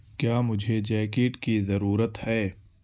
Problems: constant background noise